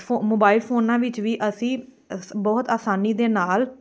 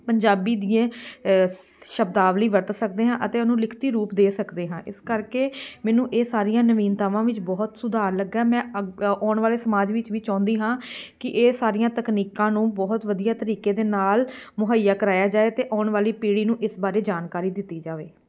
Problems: background sounds at intervals, background conversations at intervals